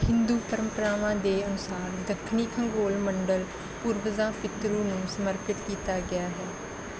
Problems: constant background noise